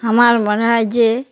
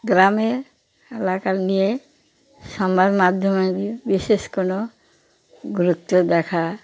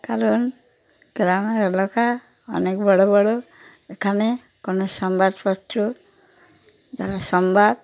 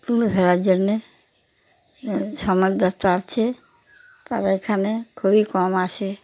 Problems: constant background noise